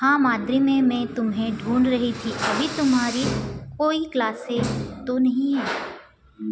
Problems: constant background noise, background conversations at intervals